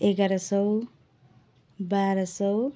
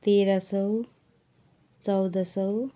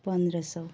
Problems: background sounds at intervals